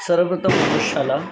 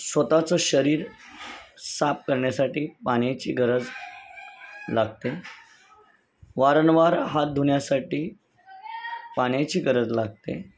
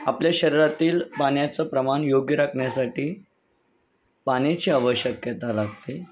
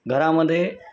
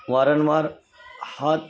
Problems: constant background noise, continuous background conversations